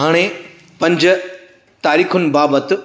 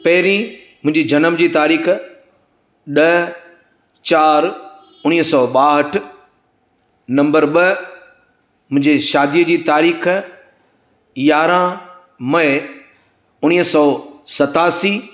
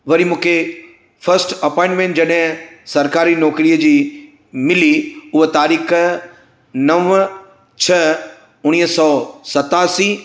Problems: constant background noise, echo